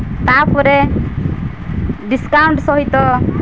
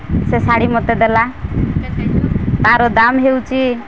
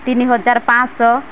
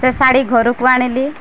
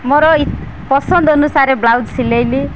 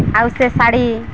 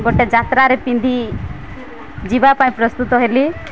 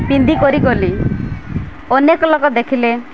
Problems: none marked